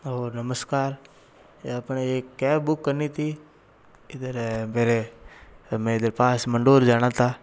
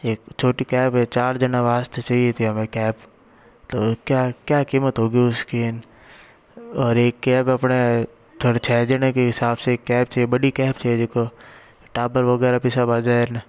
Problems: none marked